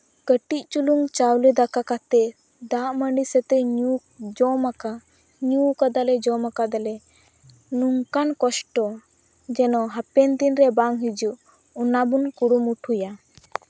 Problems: none marked